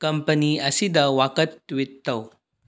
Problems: low volume